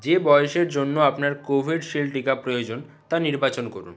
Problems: none marked